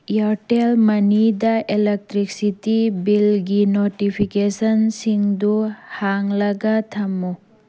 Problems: none marked